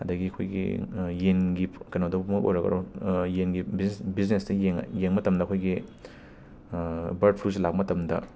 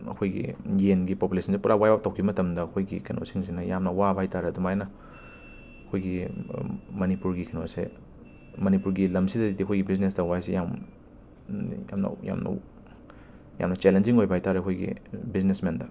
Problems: constant background noise